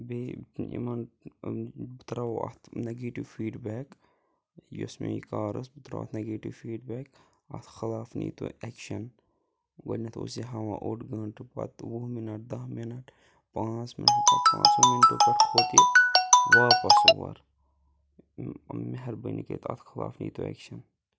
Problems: none marked